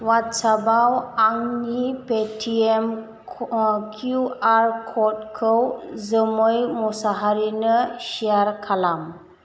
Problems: constant background noise